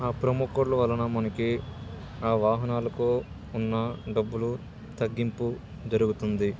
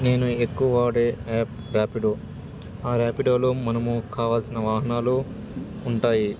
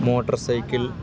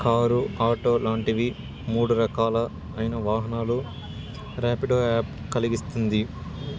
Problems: constant background noise, continuous background conversations